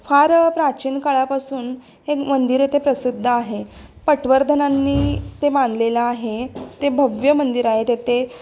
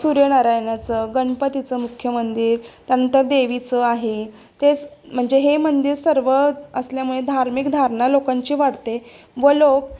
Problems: constant background noise